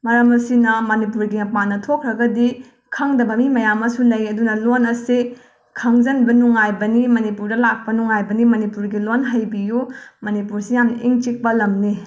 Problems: background sounds at intervals